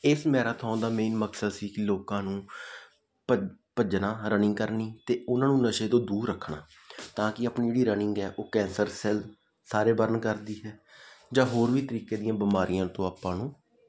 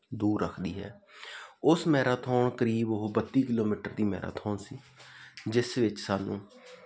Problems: background sounds at intervals